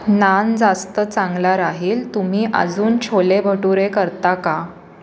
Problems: constant background noise